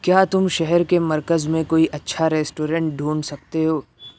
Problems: none marked